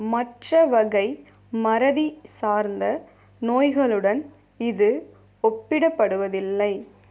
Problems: none marked